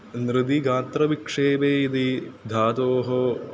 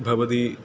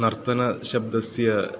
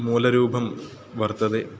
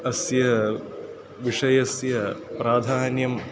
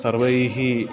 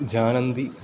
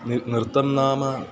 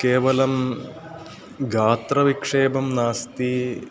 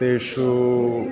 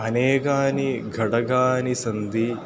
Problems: constant background noise